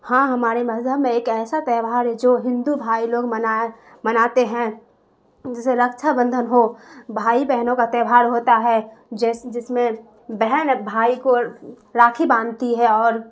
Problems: constant background noise